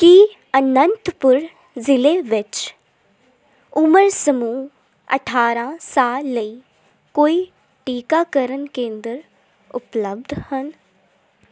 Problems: constant background noise